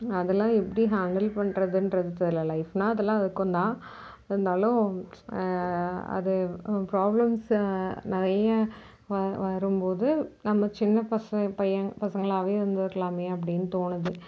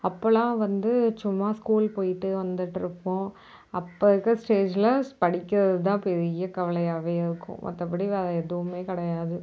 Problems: background sounds at intervals